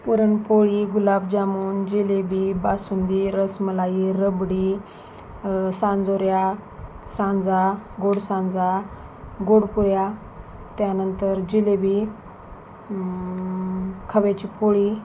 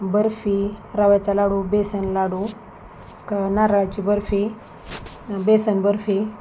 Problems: constant background noise